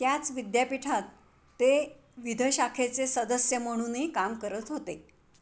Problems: constant background noise